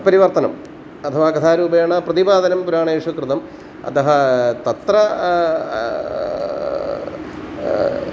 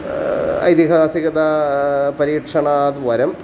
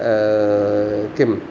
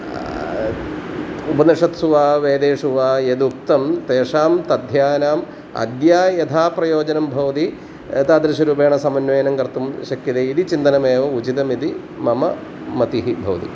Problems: constant background noise